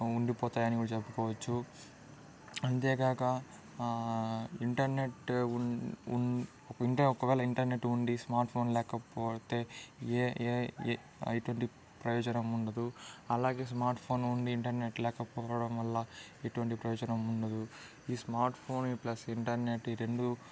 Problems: background conversations at intervals